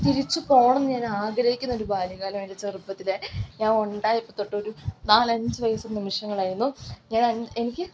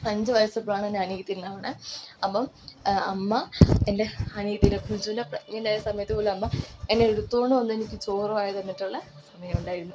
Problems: constant background noise